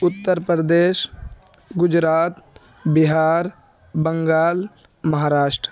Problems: background sounds at intervals, background conversations at intervals